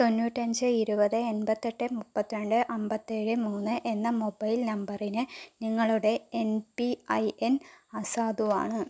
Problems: none marked